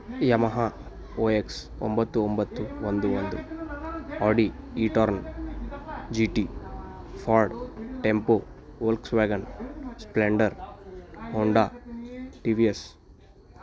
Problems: background conversations at intervals